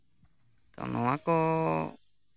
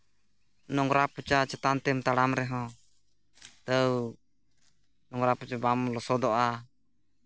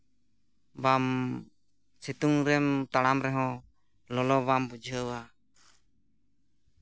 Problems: background sounds at intervals